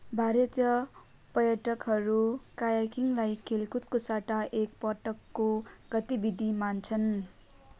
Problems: background conversations at intervals